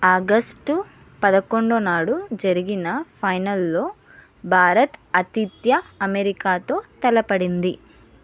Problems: none marked